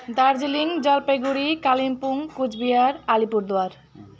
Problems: none marked